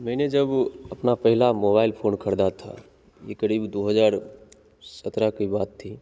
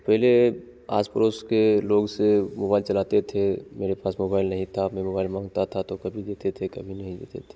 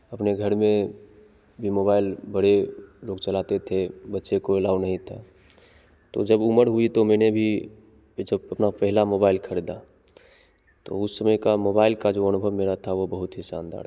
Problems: constant background noise, echo